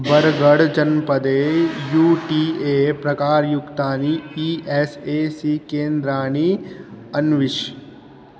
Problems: constant background noise